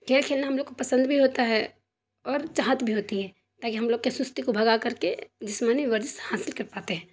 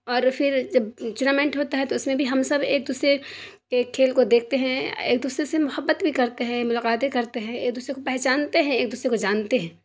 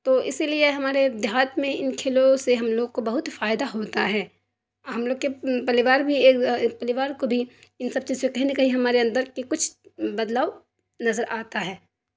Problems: constant background noise